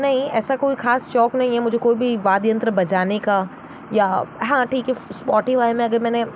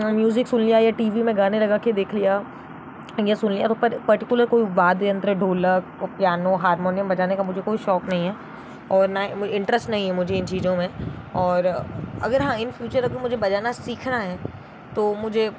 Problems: constant background noise